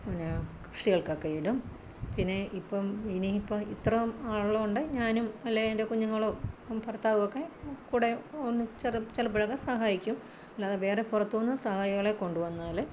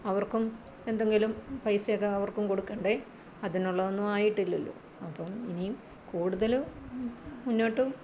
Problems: constant background noise, low volume